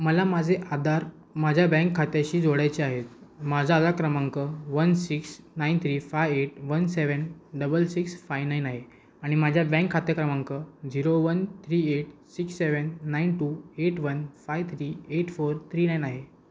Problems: constant background noise